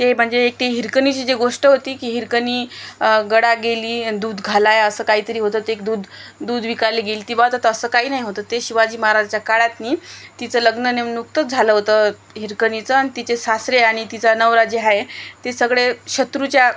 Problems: constant background noise